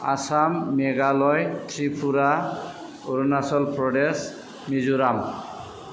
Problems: background sounds at intervals